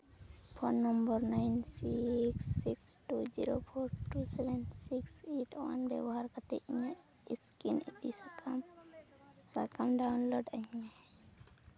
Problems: none marked